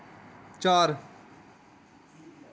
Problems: none marked